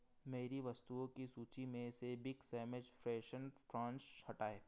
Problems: background sounds at intervals